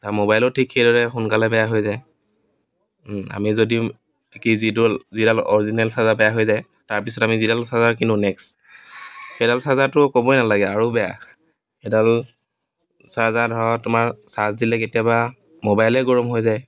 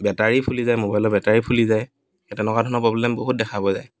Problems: background sounds at intervals, background conversations at intervals